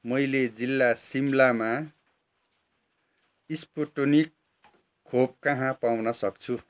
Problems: none marked